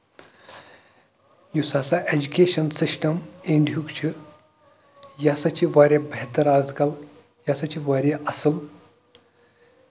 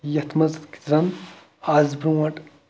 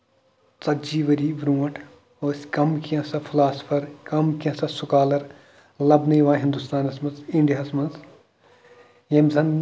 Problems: background sounds at intervals